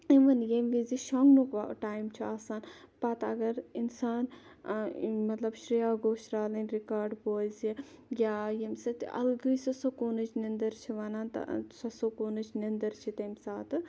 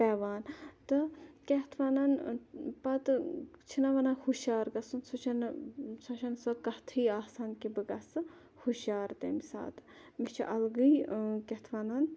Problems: none marked